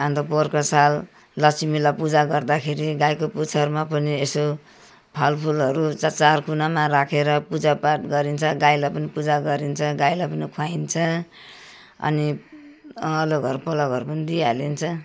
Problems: none marked